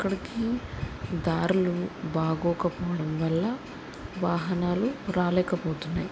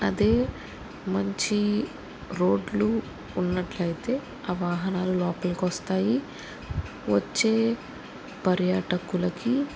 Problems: none marked